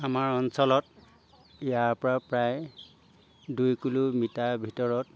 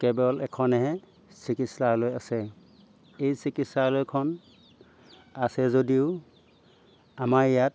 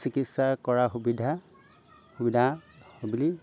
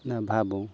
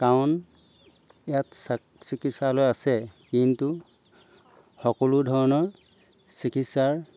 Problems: background sounds at intervals